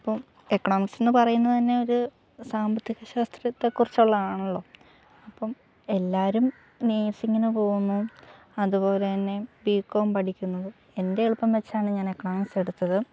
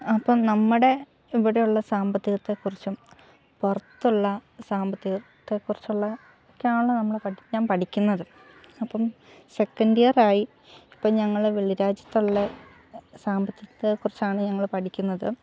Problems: low volume